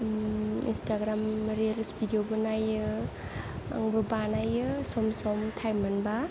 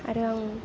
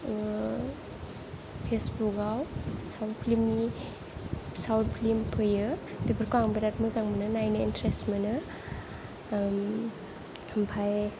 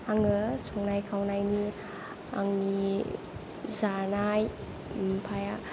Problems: low volume